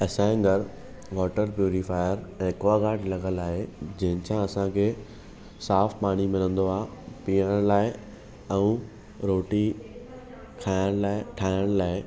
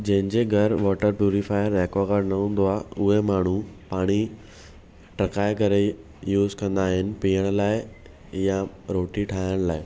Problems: none marked